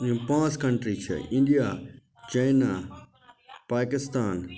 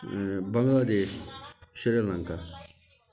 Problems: continuous background conversations